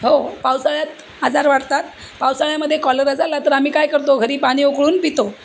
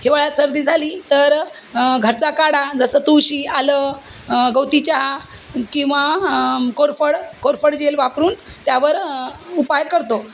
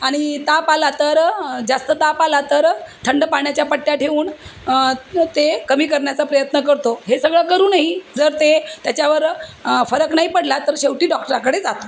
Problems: constant background noise